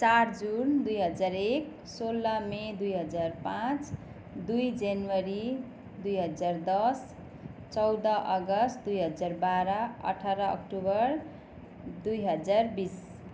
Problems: background sounds at intervals